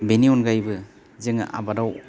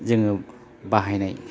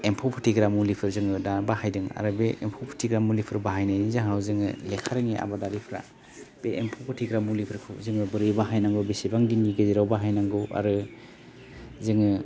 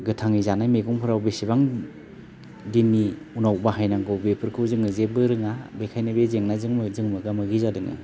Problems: low volume